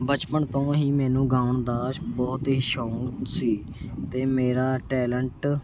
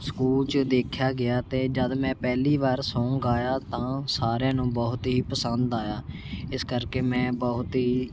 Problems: constant background noise